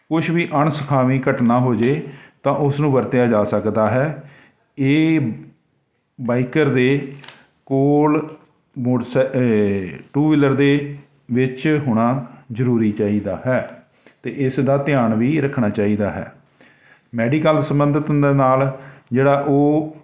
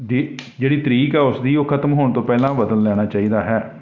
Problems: none marked